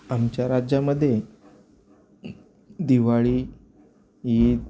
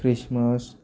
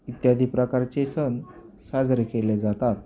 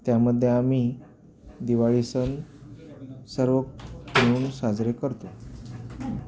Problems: none marked